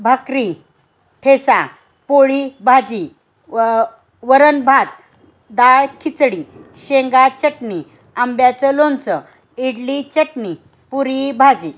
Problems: constant background noise